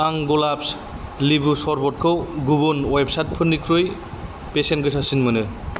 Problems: constant background noise